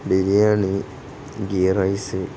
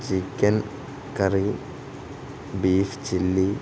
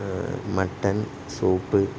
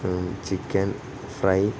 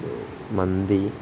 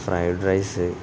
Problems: constant background noise